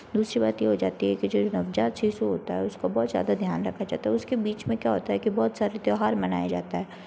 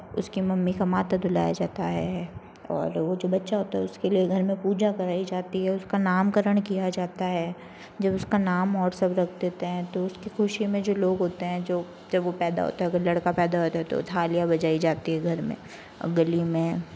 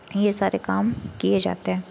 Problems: constant background noise